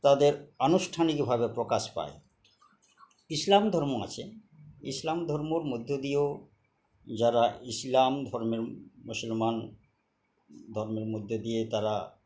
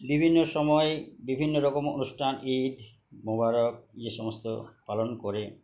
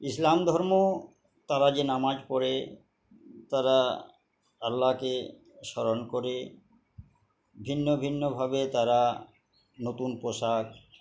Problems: background sounds at intervals